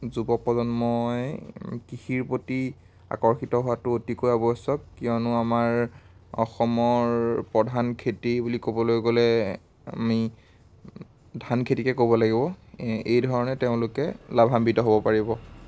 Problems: constant background noise